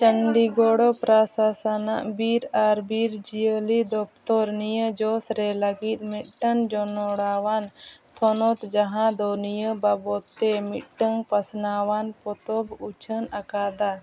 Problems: none marked